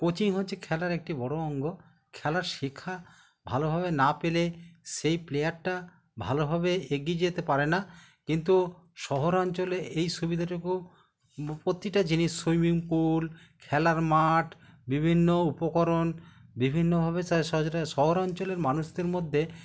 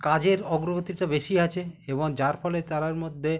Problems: none marked